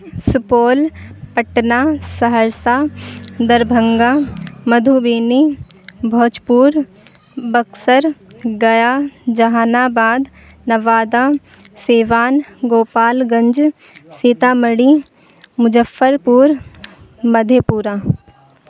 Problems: constant background noise